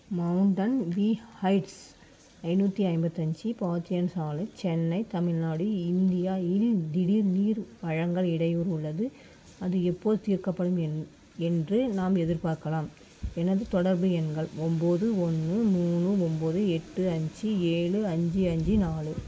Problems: constant background noise